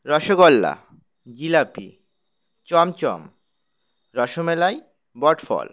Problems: none marked